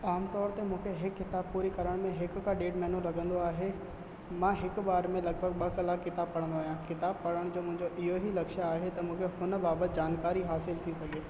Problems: constant background noise, echo